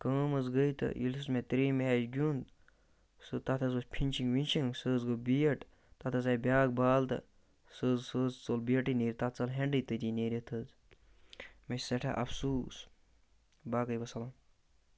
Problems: none marked